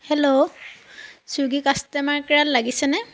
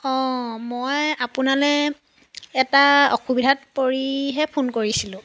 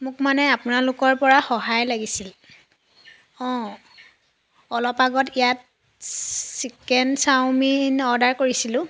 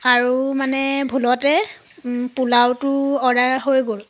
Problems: constant background noise